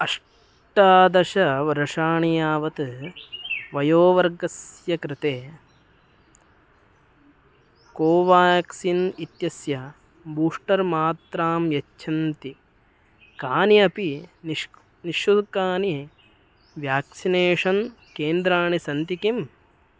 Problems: background sounds at intervals